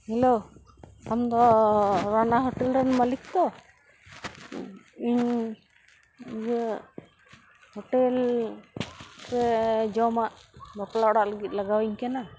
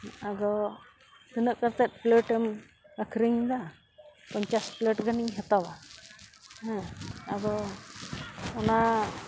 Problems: constant background noise